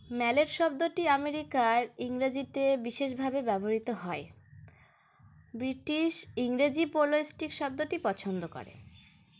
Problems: none marked